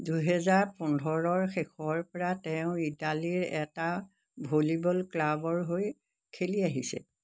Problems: constant background noise